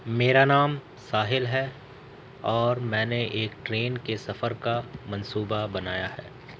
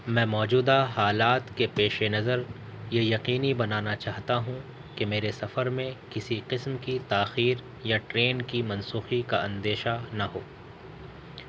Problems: constant background noise